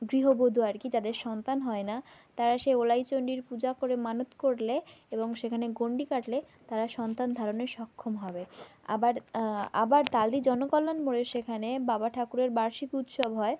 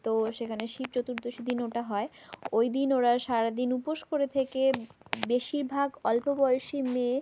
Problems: background sounds at intervals